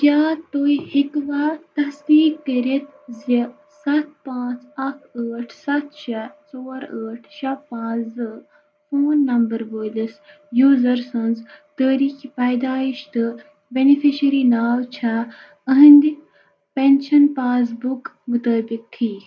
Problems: constant background noise